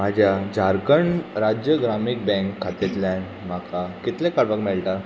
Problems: constant background noise